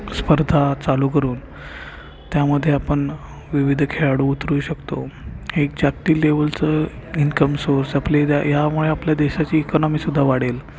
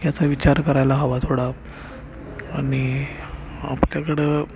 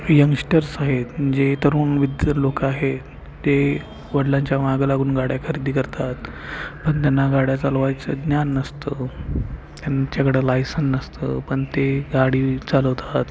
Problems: constant background noise, continuous background conversations